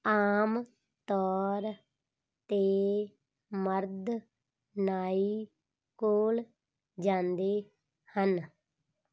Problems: background sounds at intervals